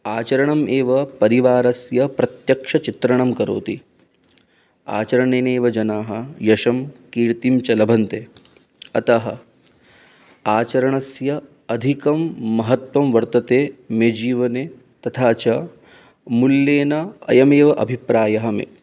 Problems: none marked